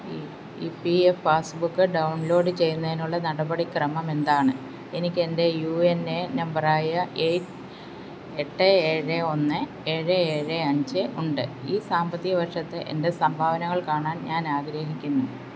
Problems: constant background noise